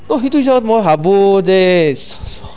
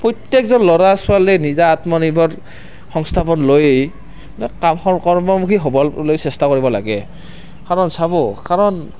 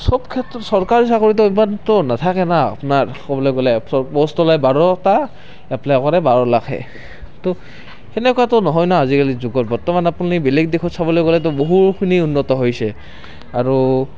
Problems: background sounds at intervals, continuous background conversations